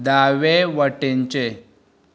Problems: background conversations at intervals